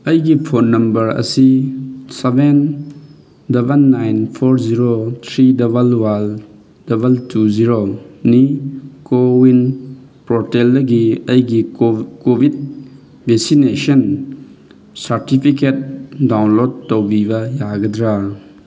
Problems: background sounds at intervals